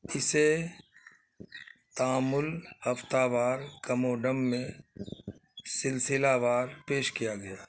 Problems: constant background noise